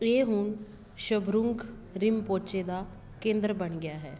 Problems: background conversations at intervals